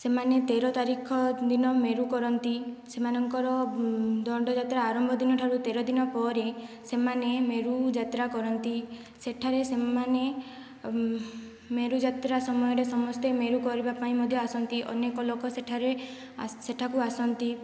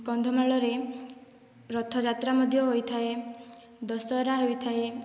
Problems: low volume